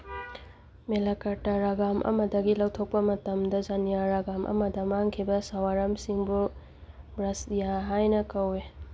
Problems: background sounds at intervals